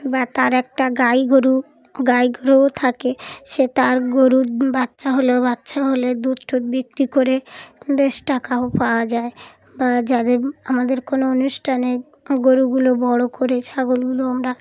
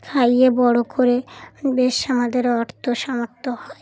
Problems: background sounds at intervals, background conversations at intervals